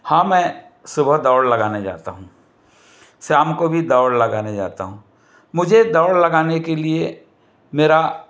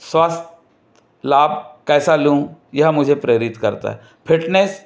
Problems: none marked